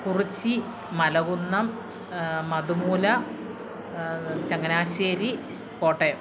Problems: constant background noise